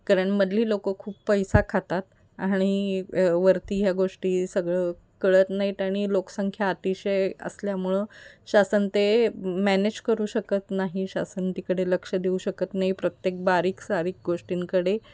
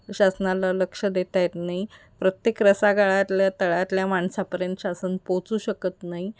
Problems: constant background noise, background conversations at intervals